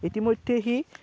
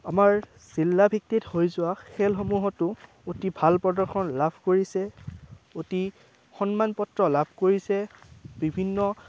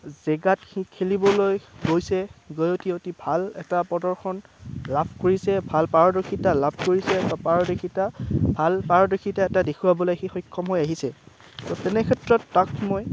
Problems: constant background noise